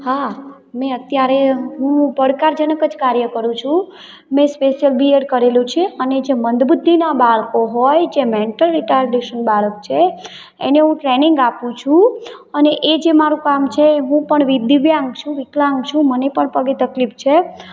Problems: none marked